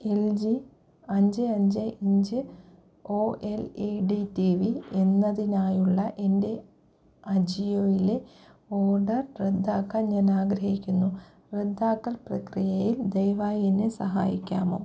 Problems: low volume